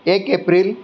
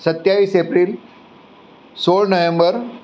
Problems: none marked